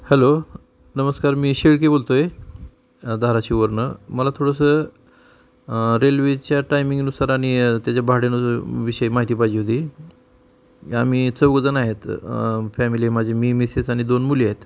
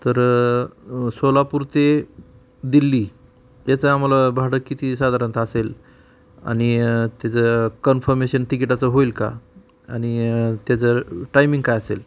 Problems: constant background noise